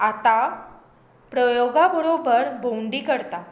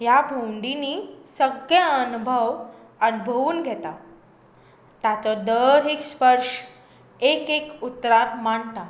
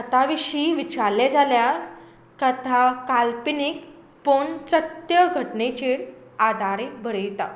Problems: constant background noise